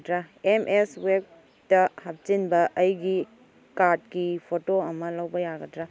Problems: background sounds at intervals